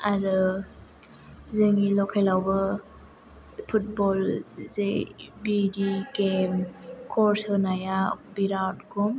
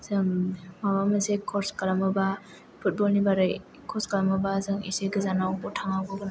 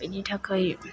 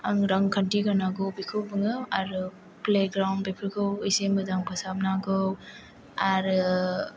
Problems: background sounds at intervals